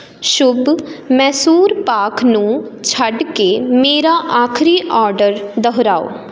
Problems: none marked